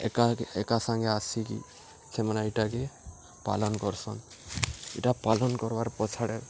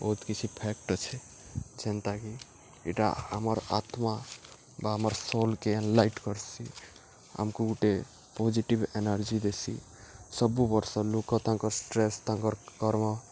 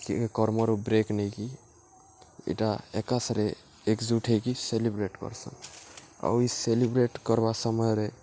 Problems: none marked